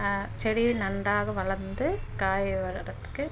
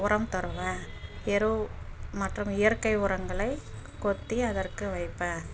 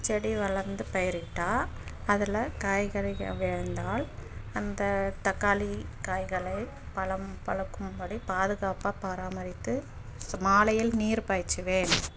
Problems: background sounds at intervals